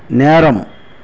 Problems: none marked